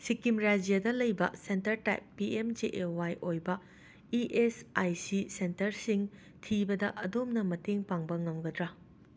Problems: constant background noise